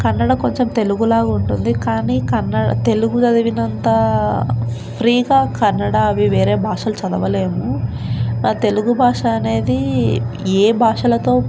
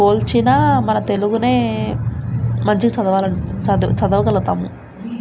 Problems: constant background noise